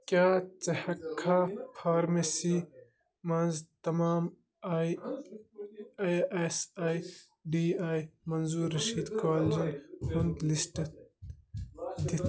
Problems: constant background noise, background conversations at intervals